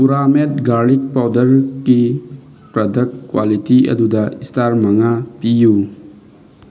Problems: constant background noise